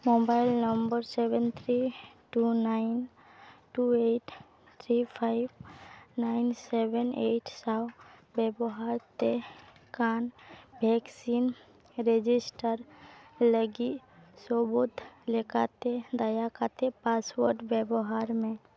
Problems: background sounds at intervals